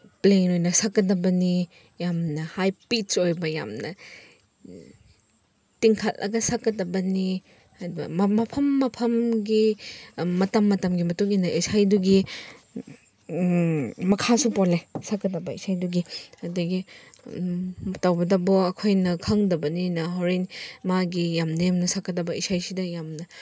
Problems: none marked